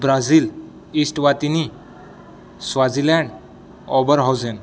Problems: none marked